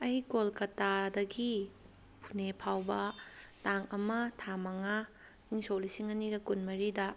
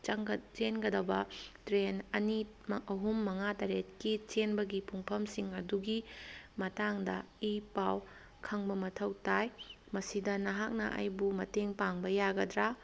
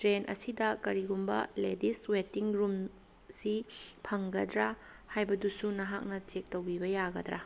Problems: background sounds at intervals